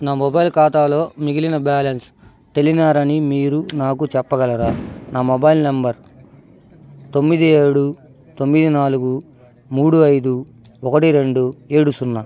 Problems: constant background noise